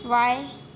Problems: constant background noise